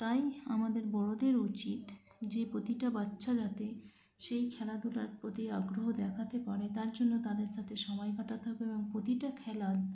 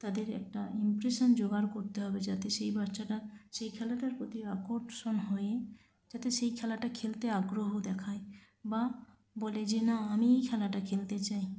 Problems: none marked